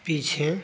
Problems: constant background noise